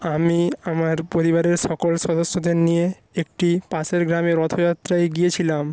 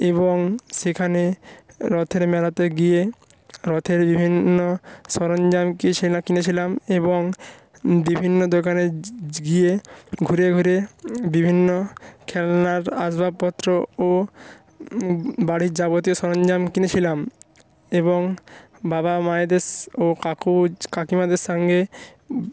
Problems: constant background noise